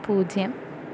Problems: constant background noise